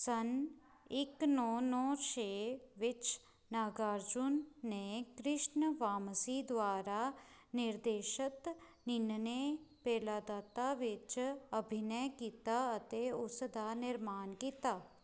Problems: background sounds at intervals